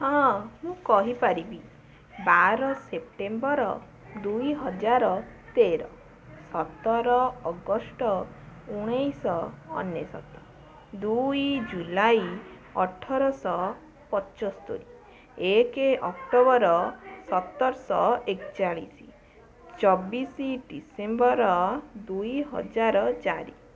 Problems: continuous background conversations